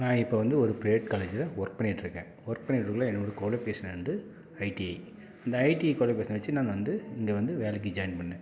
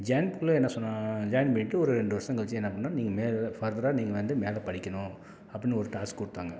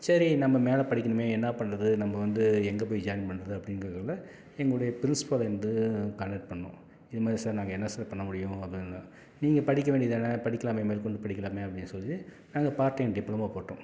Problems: none marked